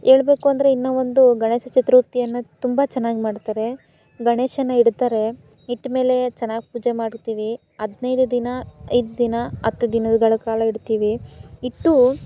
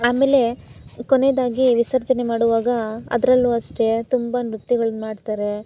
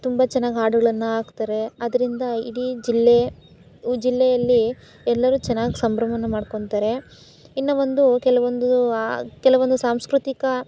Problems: background sounds at intervals